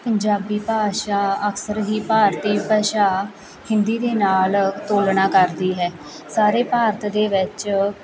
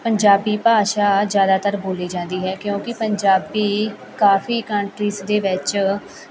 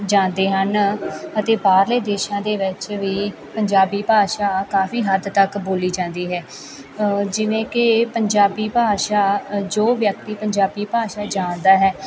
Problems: continuous background conversations